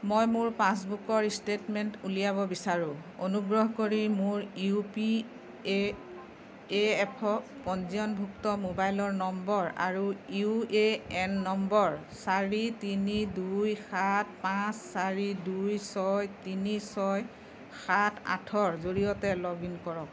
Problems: background conversations at intervals